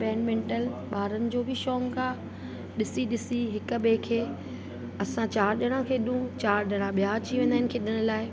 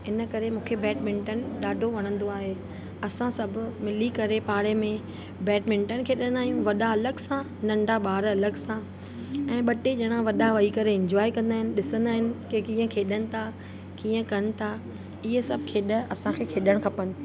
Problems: constant background noise, echo